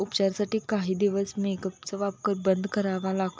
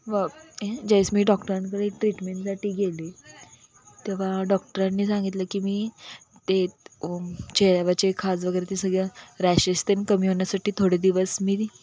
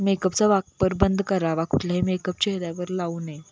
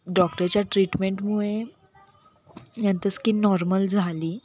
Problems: constant background noise, continuous background conversations